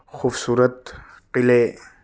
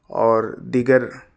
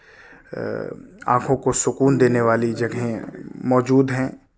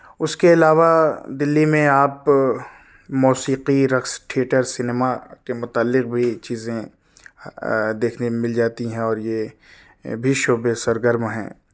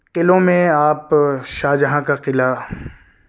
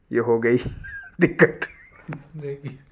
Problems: background conversations at intervals